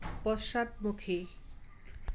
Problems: background sounds at intervals